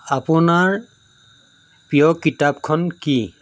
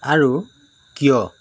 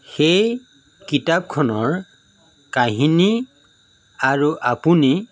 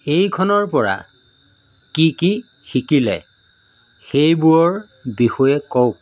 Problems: background sounds at intervals